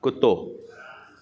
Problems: constant background noise, echo